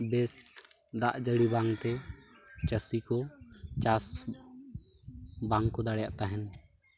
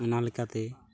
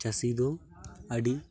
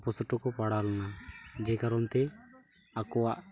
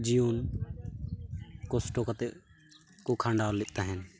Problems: none marked